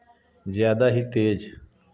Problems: background sounds at intervals